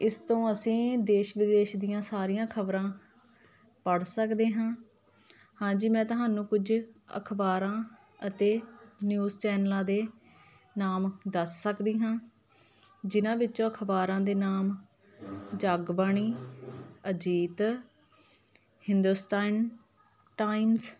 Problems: continuous background conversations